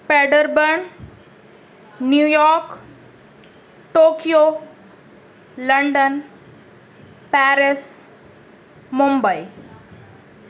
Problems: constant background noise